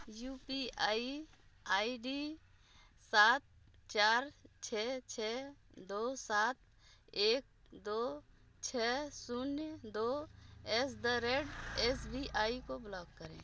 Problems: constant background noise